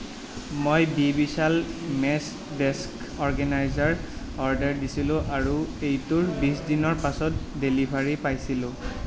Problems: constant background noise, background conversations at intervals